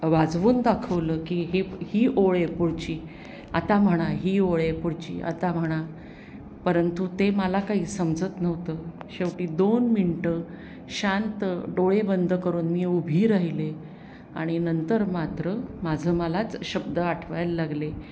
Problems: background sounds at intervals